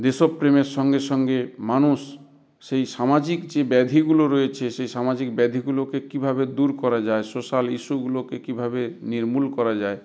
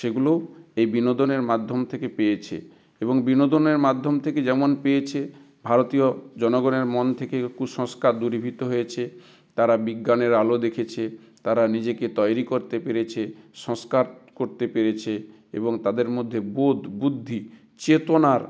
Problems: none marked